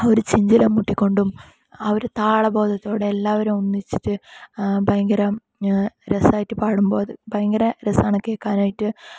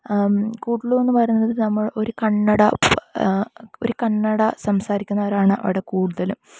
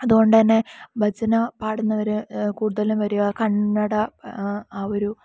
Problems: low volume